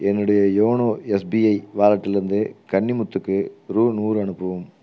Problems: none marked